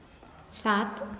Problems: constant background noise, echo